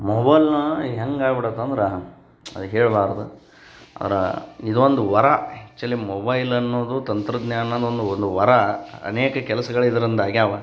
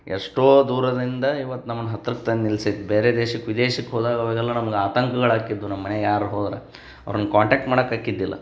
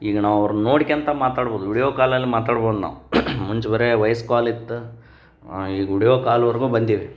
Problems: none marked